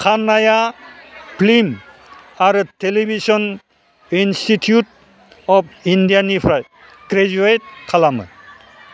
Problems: constant background noise